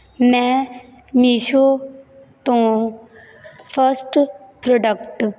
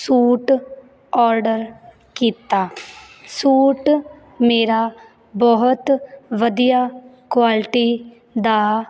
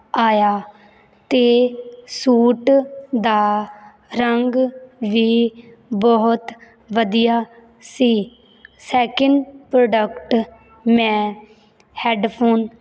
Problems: background sounds at intervals